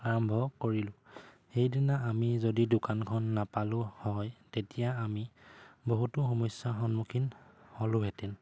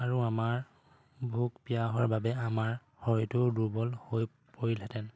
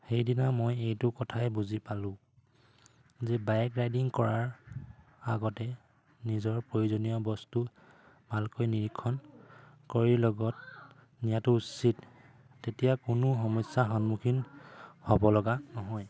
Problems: background sounds at intervals